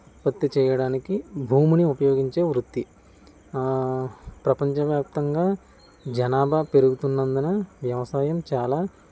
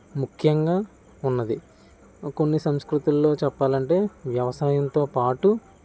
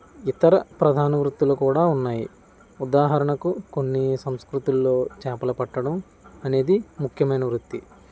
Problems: none marked